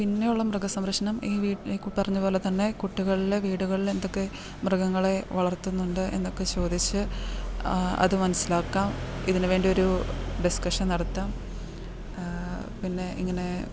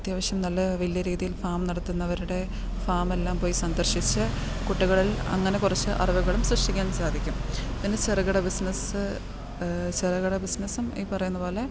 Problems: background sounds at intervals